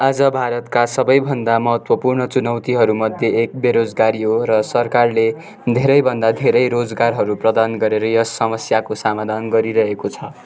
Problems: continuous background conversations